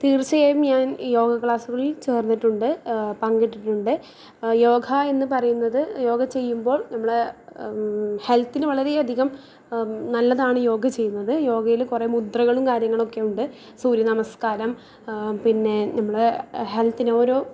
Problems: low volume